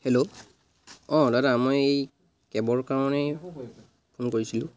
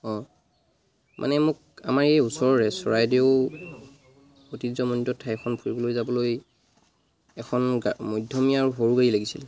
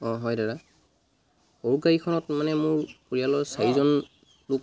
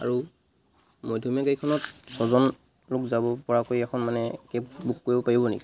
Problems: constant background noise